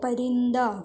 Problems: background sounds at intervals